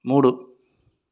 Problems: constant background noise